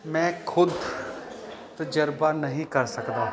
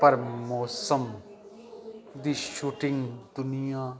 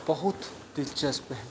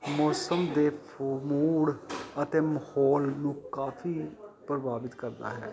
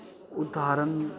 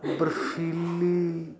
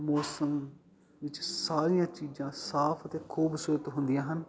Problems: continuous background conversations